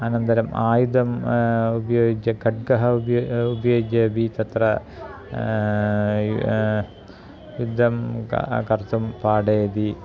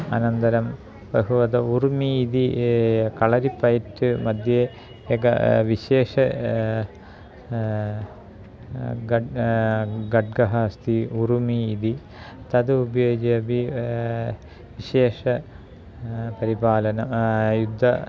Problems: background conversations at intervals